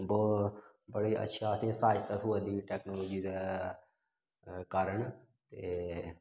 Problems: background sounds at intervals